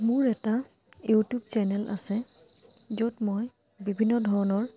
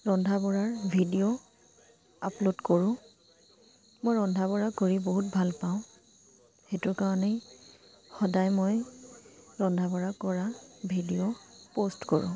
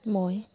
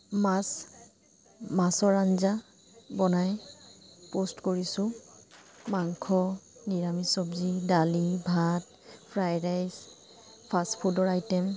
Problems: constant background noise